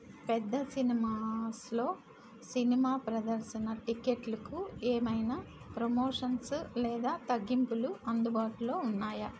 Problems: constant background noise